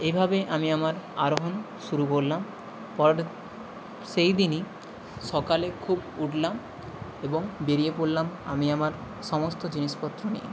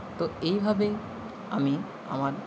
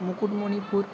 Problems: constant background noise